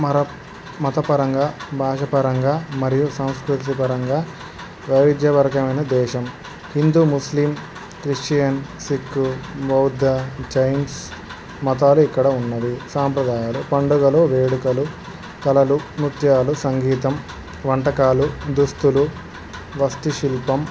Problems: constant background noise